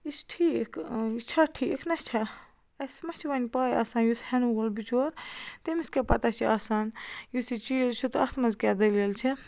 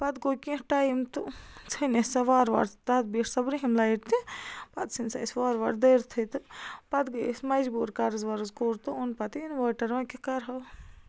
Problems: constant background noise